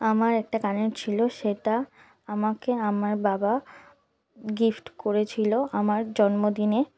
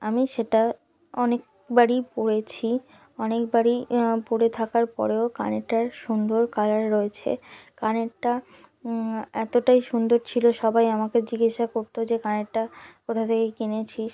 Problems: background sounds at intervals